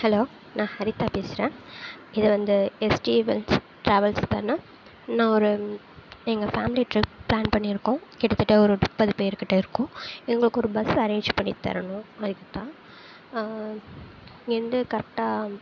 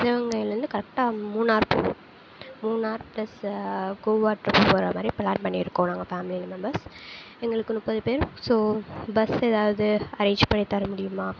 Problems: constant background noise, low volume